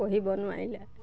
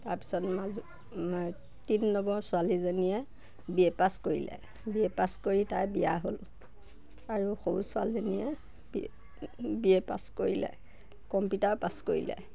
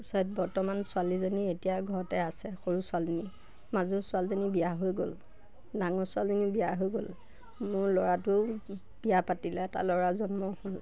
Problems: none marked